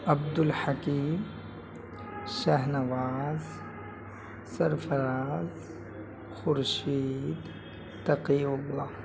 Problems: constant background noise, low volume